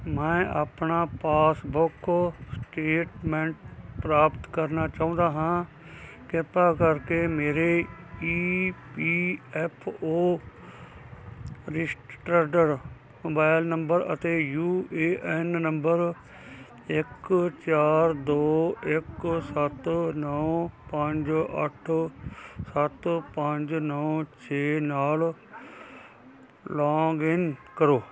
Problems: none marked